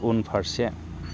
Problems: low volume